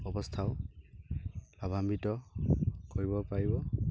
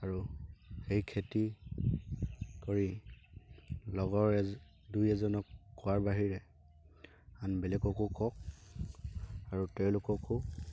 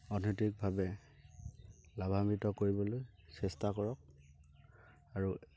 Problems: constant background noise